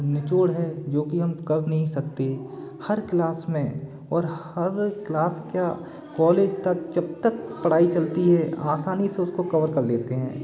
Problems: constant background noise, continuous background conversations